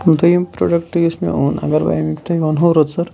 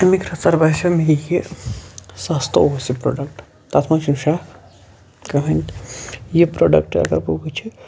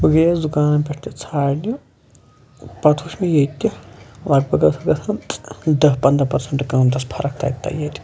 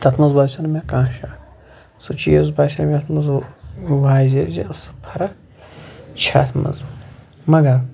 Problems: background sounds at intervals, background conversations at intervals